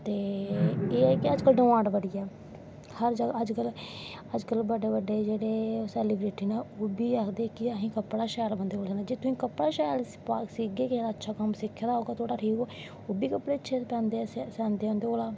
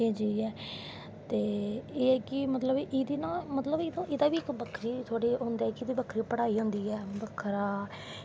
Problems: none marked